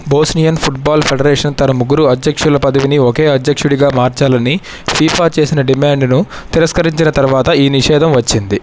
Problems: none marked